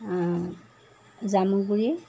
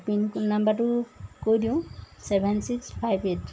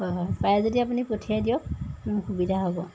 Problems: constant background noise